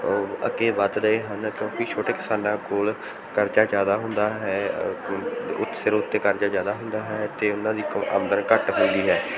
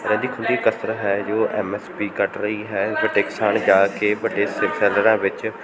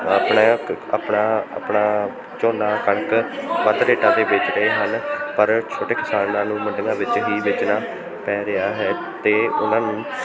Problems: continuous background conversations